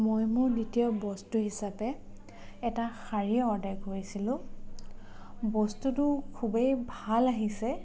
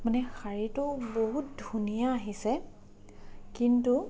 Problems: background sounds at intervals, low volume